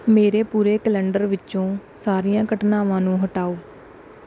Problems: none marked